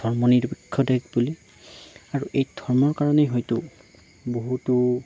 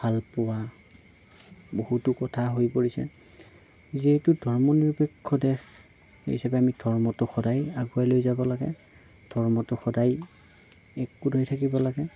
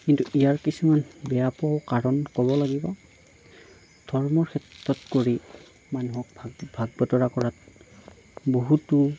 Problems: background sounds at intervals, low volume